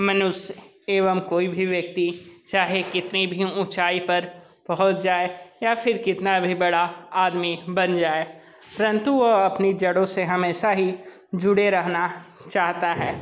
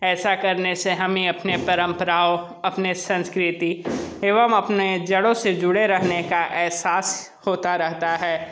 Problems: background sounds at intervals